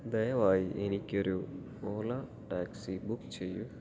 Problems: low volume